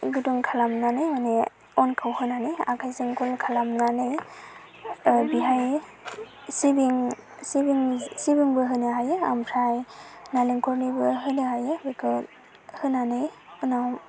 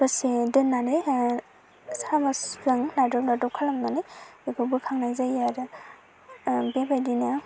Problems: constant background noise